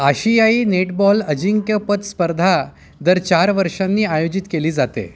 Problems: constant background noise, continuous background conversations